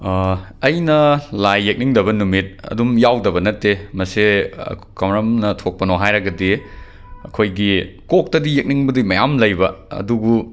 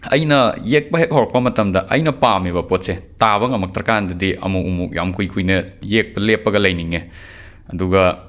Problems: background sounds at intervals